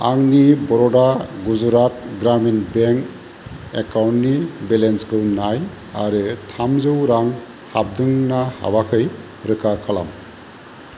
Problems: constant background noise